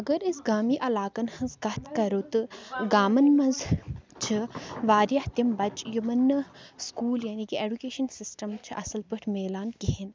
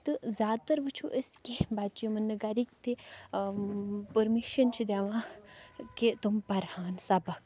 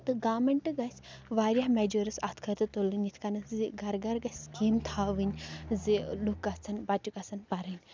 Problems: background sounds at intervals, background conversations at intervals